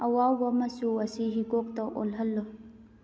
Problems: background sounds at intervals